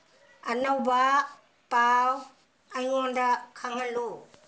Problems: none marked